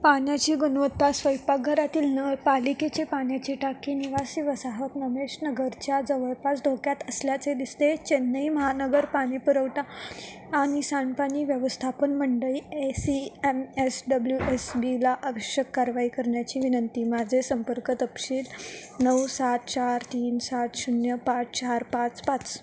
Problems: constant background noise